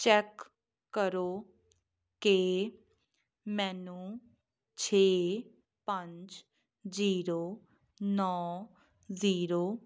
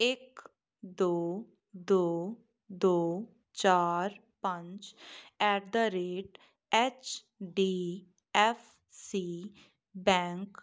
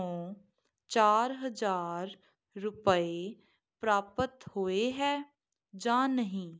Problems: background sounds at intervals